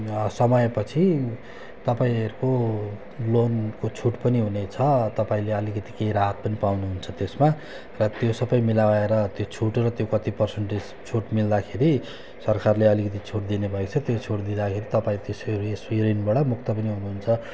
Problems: constant background noise